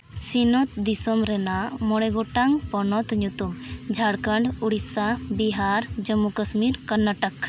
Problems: constant background noise